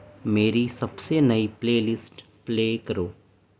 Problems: constant background noise